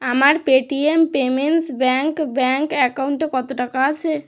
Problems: none marked